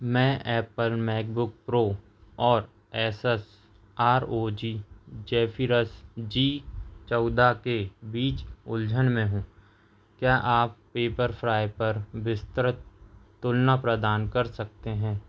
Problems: none marked